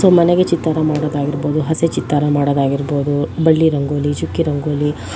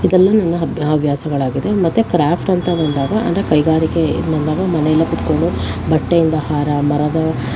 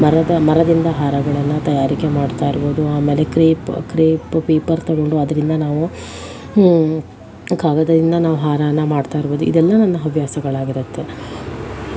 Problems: constant background noise